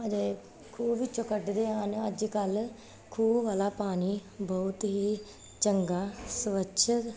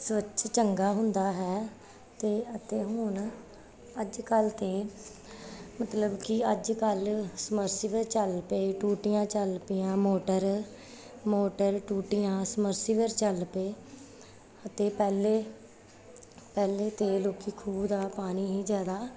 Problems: none marked